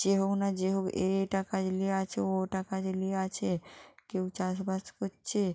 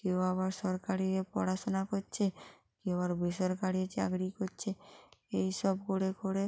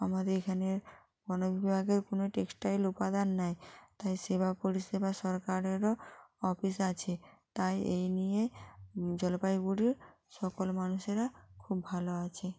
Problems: constant background noise